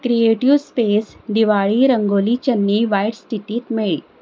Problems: constant background noise